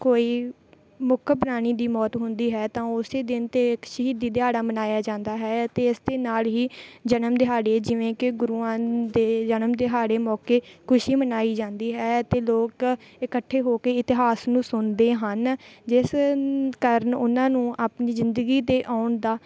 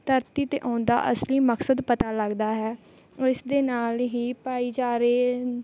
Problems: none marked